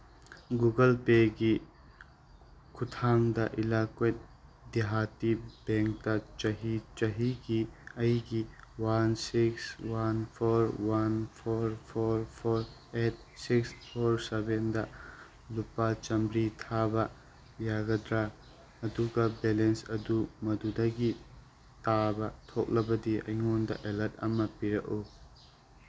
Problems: constant background noise